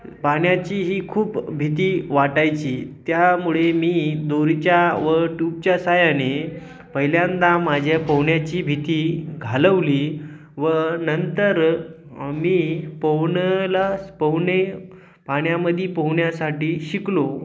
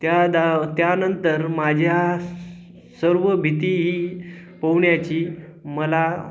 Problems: none marked